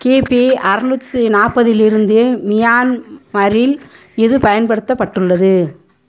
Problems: background sounds at intervals